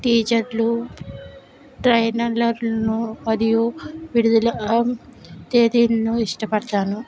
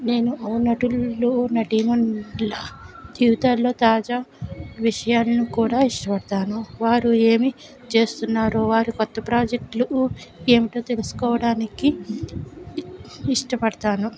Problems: none marked